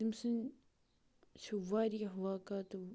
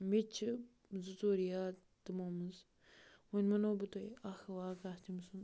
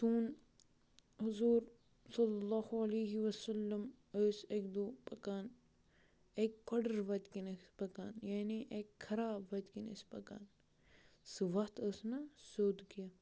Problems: background sounds at intervals